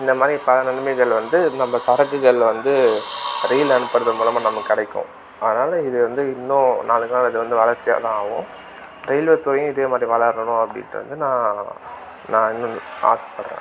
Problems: constant background noise